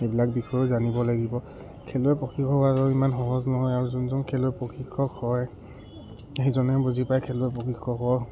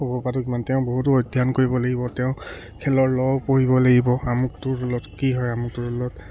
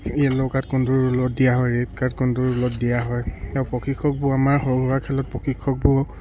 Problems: none marked